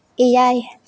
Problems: echo